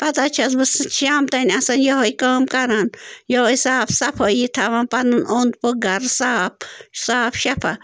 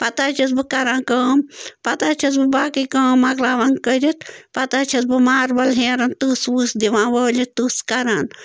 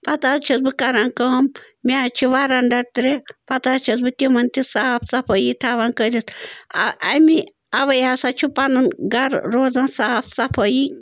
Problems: constant background noise